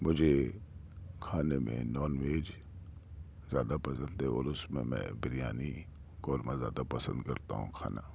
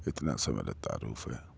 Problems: none marked